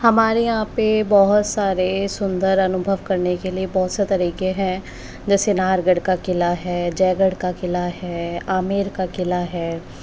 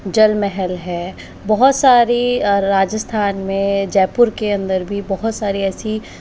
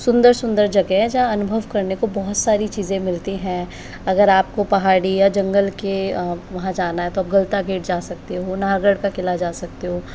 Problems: constant background noise